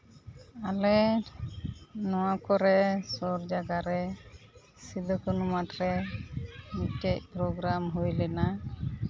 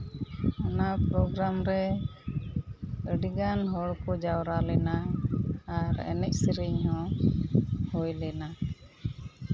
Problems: none marked